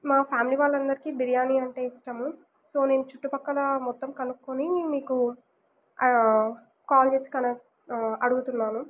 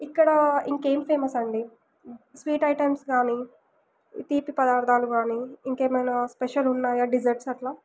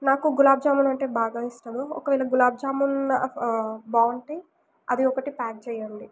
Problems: none marked